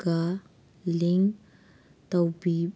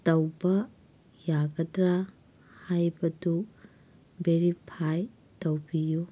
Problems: none marked